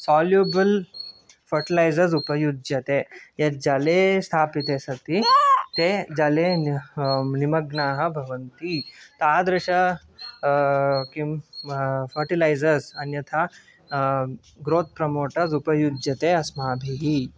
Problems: background sounds at intervals, background conversations at intervals